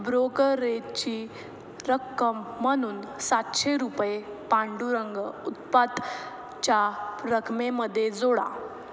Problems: background sounds at intervals